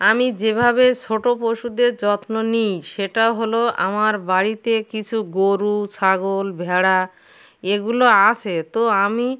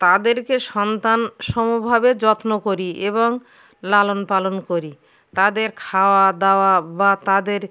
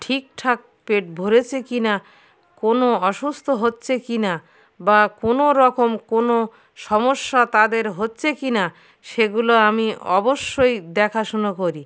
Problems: constant background noise, background conversations at intervals